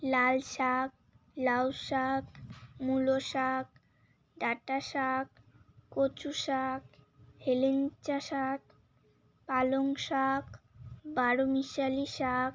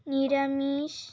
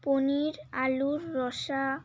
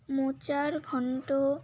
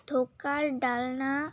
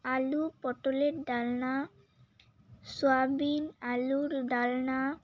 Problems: constant background noise, continuous background conversations